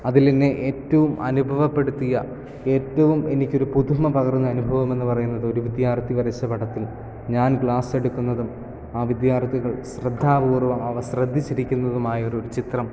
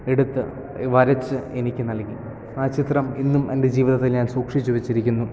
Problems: none marked